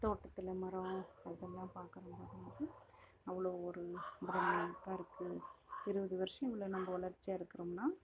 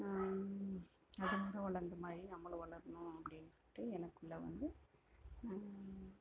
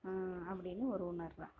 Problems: background sounds at intervals, low volume